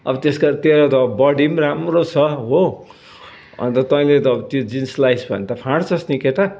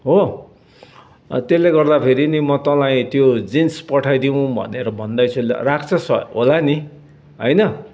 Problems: none marked